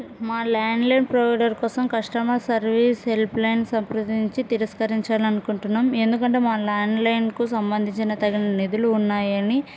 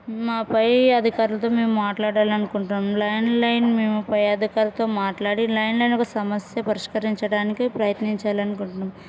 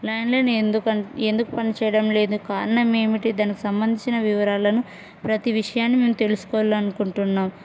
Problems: none marked